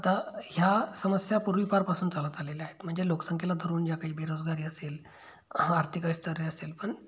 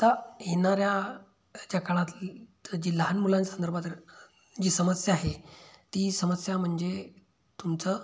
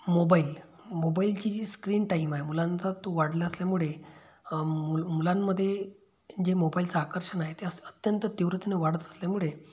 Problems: background sounds at intervals